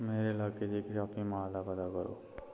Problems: low volume